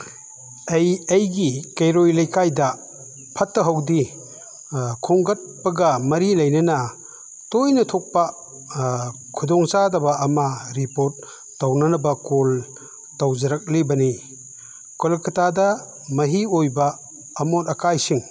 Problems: none marked